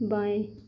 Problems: constant background noise